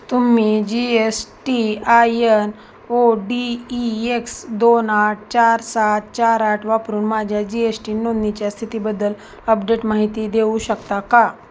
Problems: constant background noise